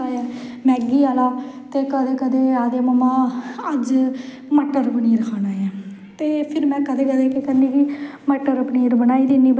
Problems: echo